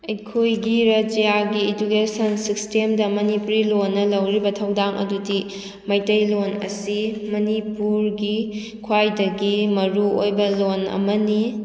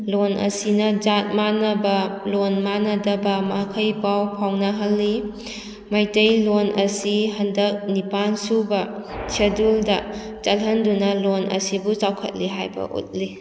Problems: background sounds at intervals